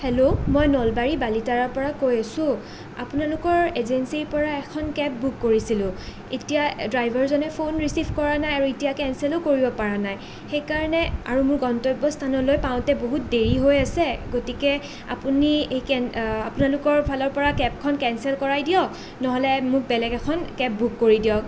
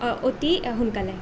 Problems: none marked